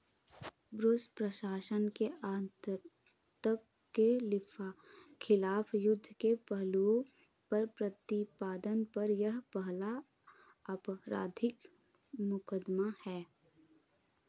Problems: background sounds at intervals